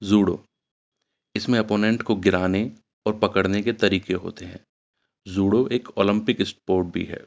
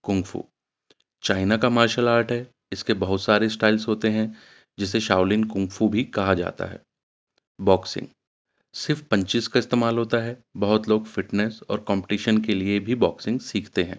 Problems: none marked